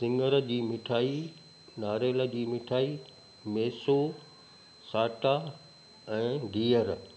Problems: constant background noise, echo